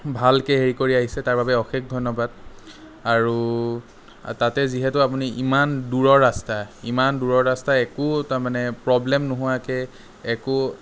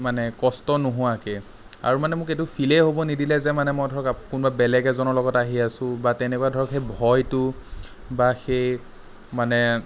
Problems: none marked